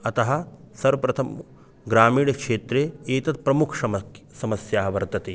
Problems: constant background noise